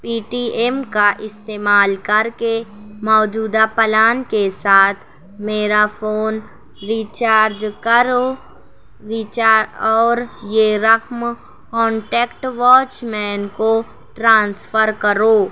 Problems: constant background noise